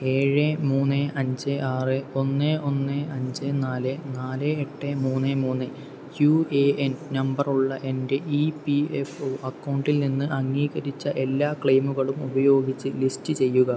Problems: background sounds at intervals, low volume